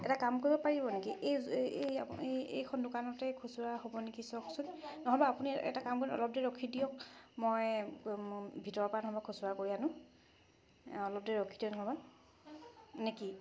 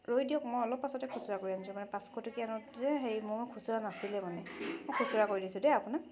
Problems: background sounds at intervals